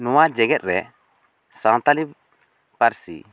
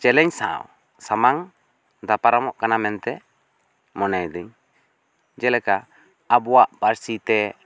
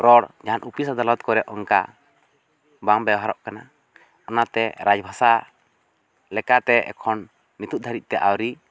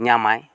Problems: none marked